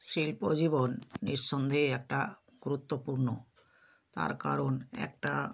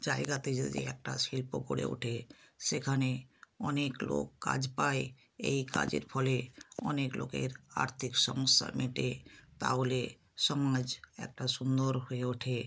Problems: none marked